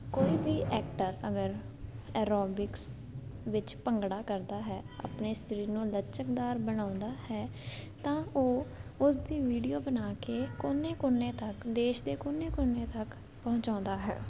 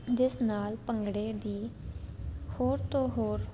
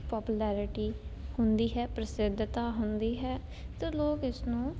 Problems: none marked